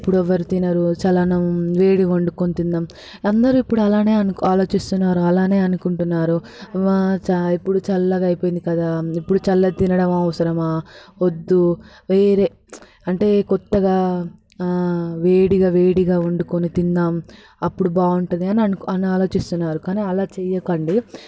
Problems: constant background noise